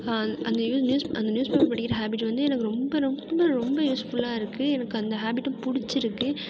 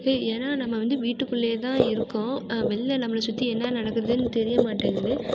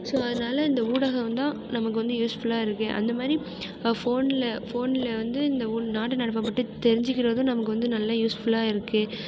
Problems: none marked